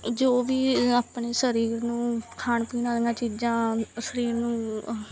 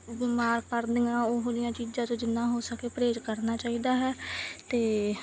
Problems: background sounds at intervals